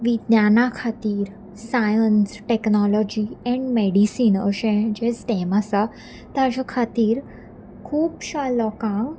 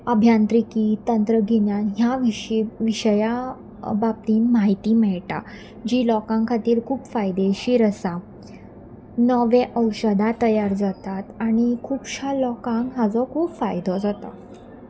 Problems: none marked